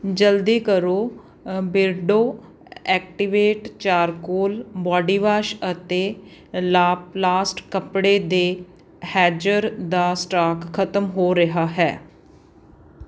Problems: background sounds at intervals